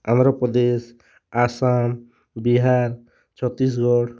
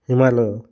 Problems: none marked